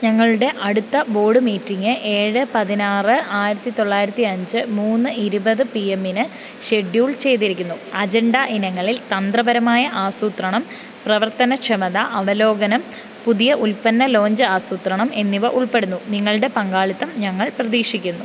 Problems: none marked